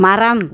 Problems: background sounds at intervals